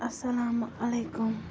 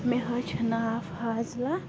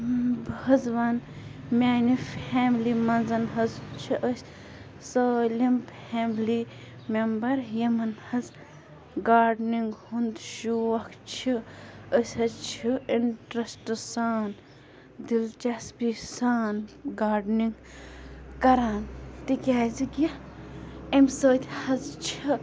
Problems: constant background noise, low volume